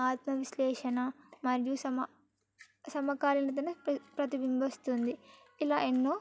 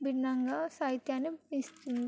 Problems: background sounds at intervals